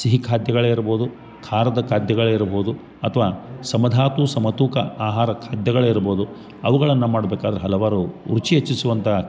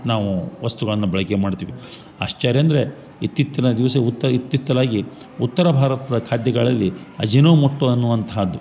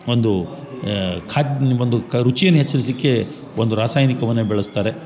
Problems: none marked